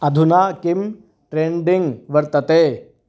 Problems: none marked